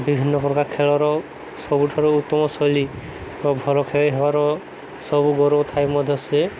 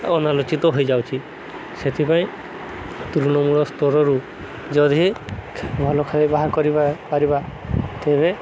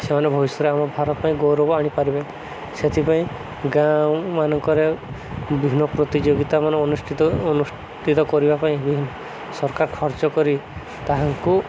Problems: none marked